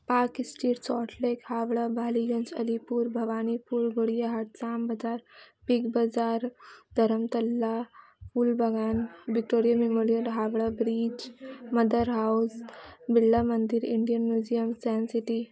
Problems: none marked